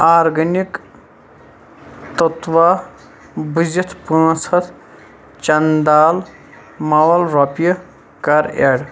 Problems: constant background noise